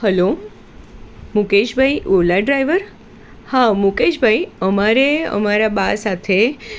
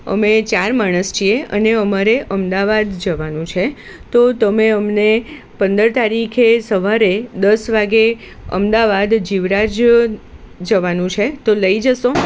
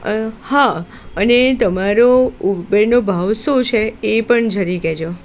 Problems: constant background noise